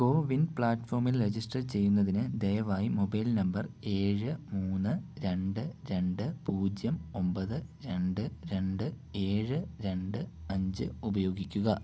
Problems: low volume